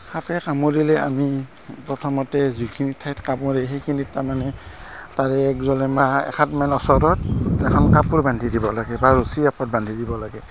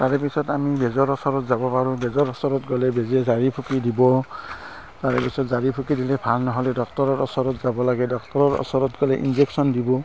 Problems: constant background noise